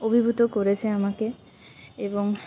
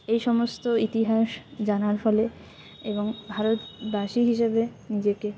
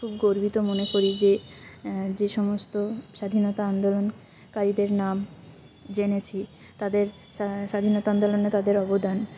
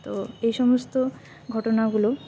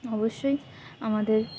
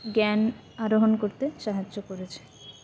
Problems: background sounds at intervals